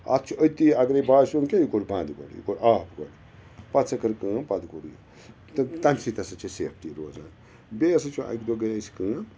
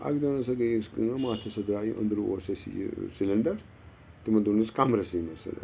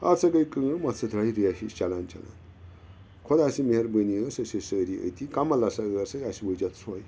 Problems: constant background noise